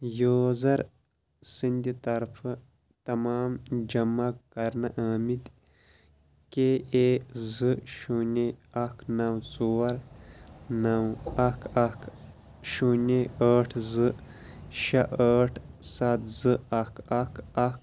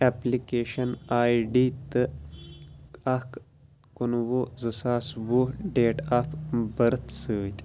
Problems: constant background noise